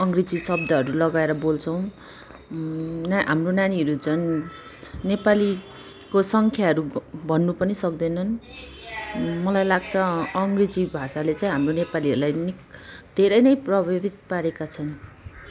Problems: background conversations at intervals